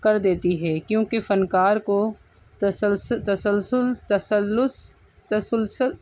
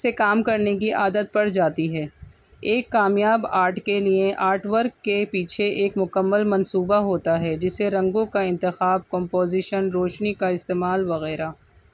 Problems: background sounds at intervals